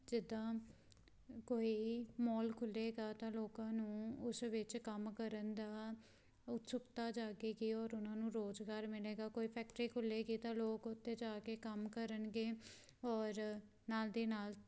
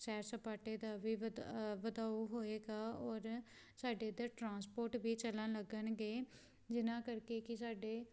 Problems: background sounds at intervals